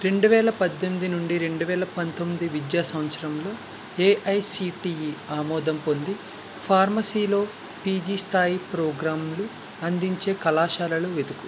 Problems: constant background noise